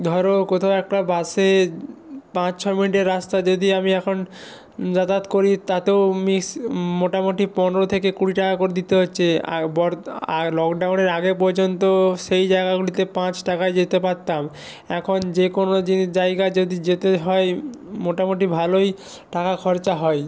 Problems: background sounds at intervals